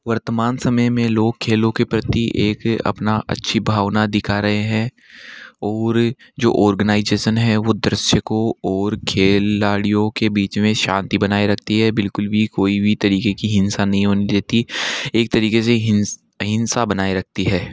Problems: background sounds at intervals